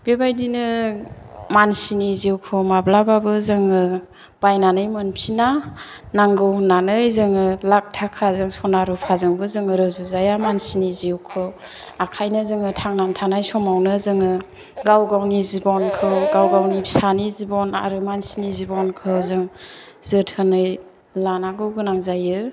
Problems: background sounds at intervals